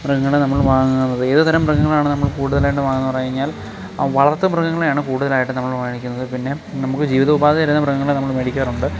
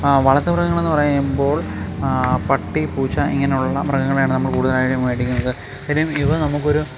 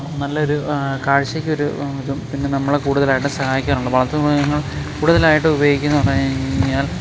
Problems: constant background noise